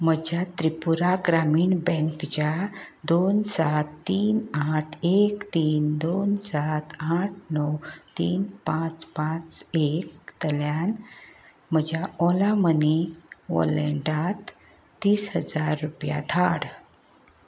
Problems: none marked